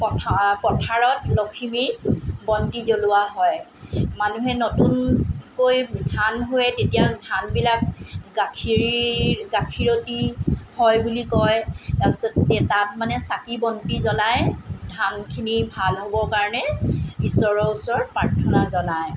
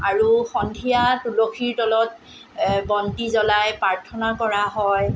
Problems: none marked